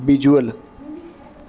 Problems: constant background noise